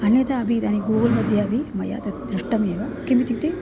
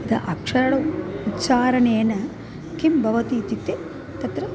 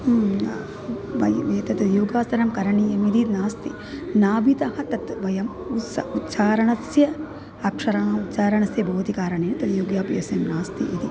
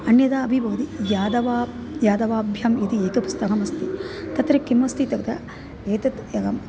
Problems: constant background noise